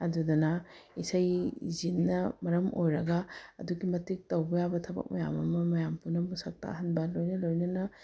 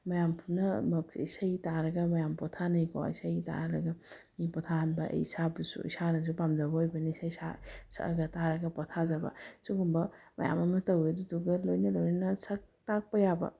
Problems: background sounds at intervals